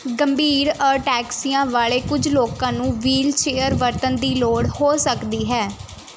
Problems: none marked